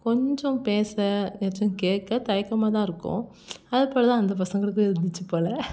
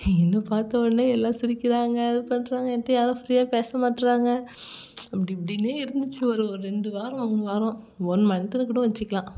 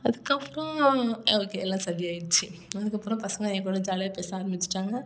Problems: none marked